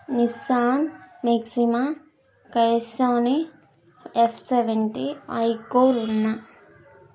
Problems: none marked